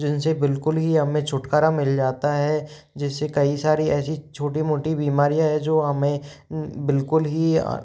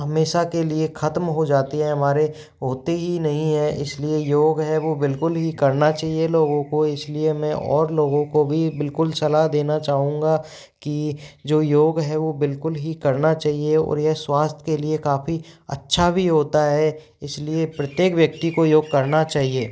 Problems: background sounds at intervals